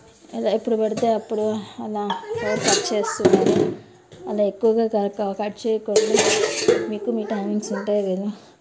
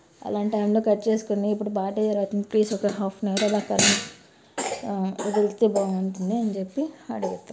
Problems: background sounds at intervals, background conversations at intervals